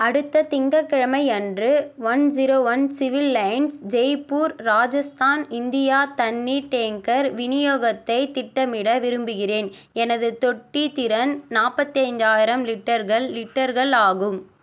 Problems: none marked